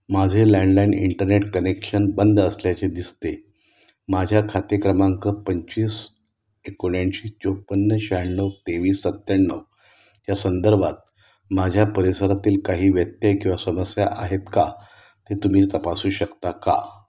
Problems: constant background noise